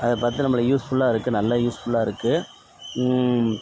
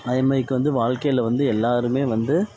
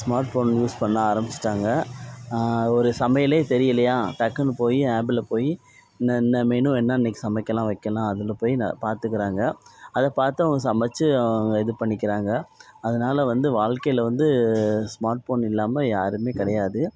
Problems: none marked